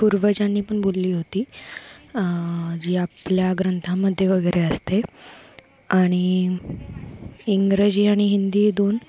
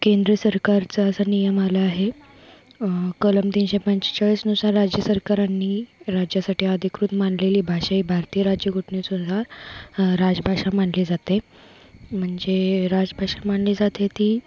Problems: constant background noise